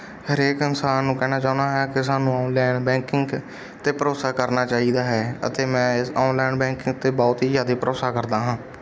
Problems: background sounds at intervals, background conversations at intervals